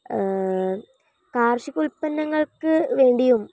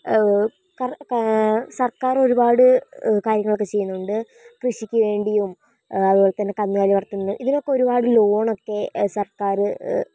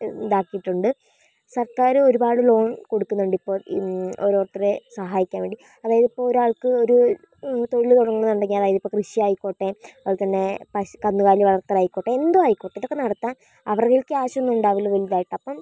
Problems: none marked